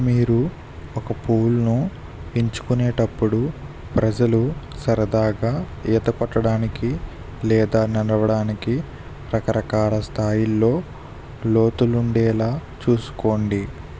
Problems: constant background noise